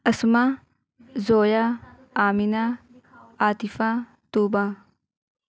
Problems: none marked